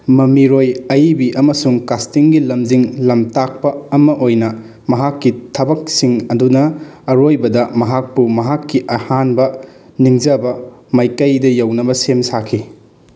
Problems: background sounds at intervals